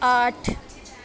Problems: constant background noise